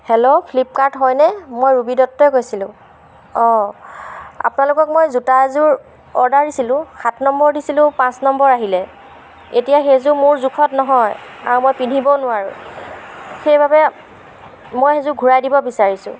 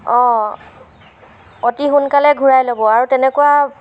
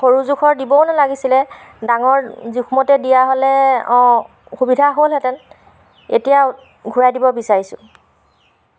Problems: background sounds at intervals